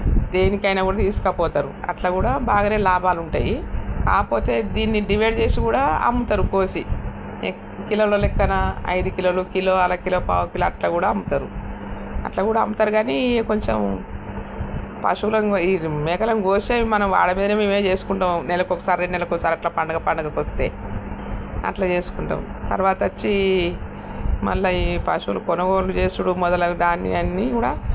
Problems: constant background noise